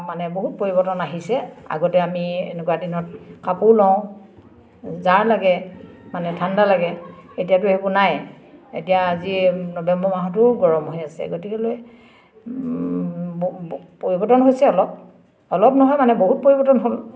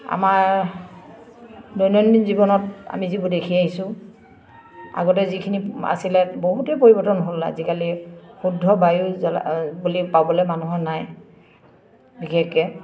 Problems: constant background noise, background conversations at intervals